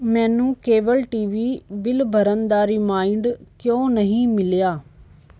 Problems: background sounds at intervals